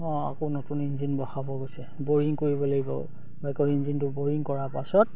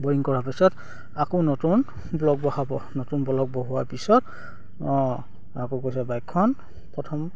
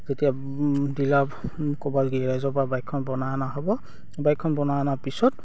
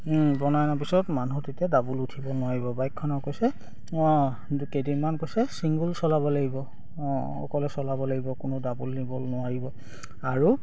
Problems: none marked